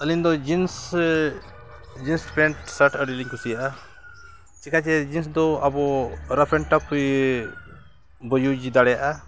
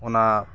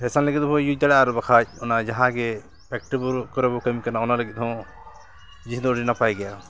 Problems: none marked